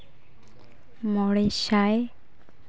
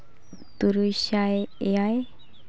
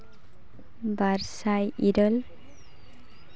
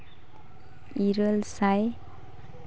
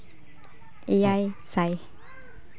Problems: constant background noise, continuous background conversations